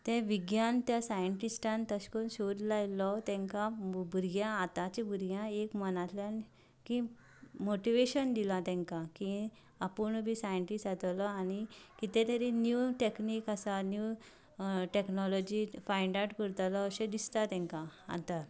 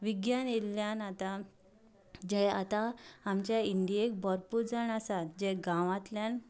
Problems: background sounds at intervals, background conversations at intervals